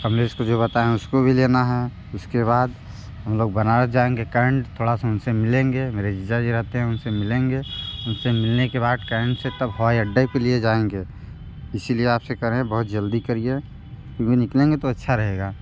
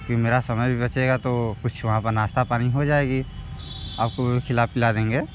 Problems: background sounds at intervals